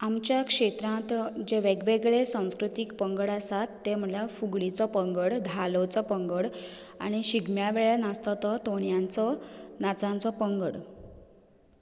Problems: none marked